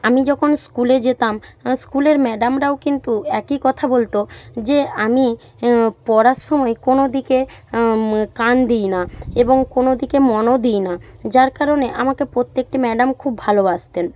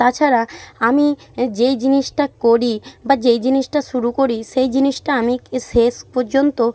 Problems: none marked